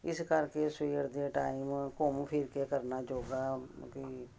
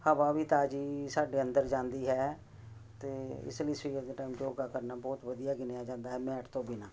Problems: constant background noise